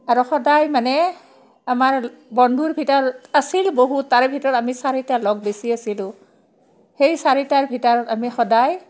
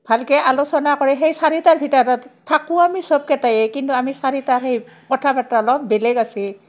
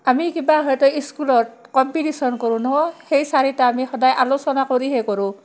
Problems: background sounds at intervals